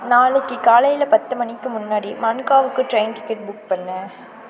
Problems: background conversations at intervals